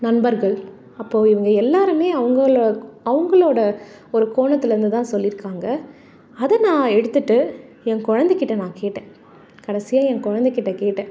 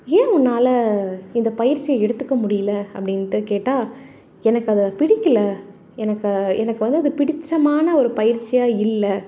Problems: none marked